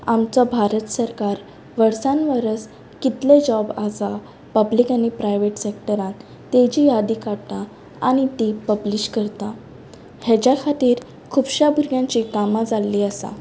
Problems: constant background noise